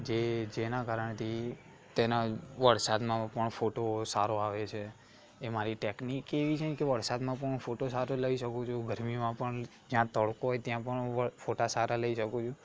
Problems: constant background noise